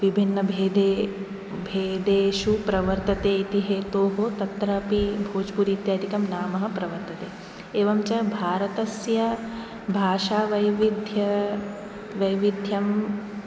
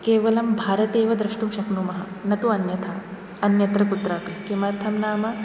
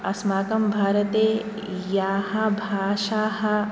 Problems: none marked